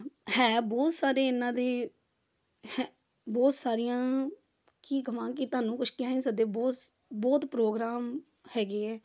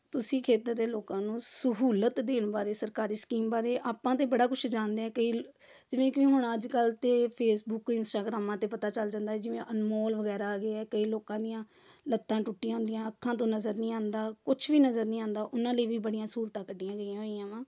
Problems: background conversations at intervals